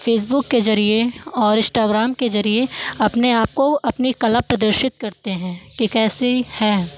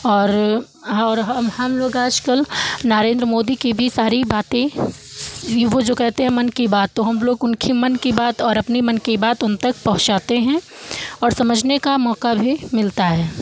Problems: background sounds at intervals